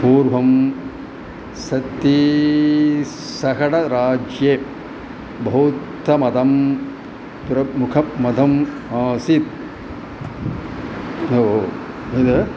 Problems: background sounds at intervals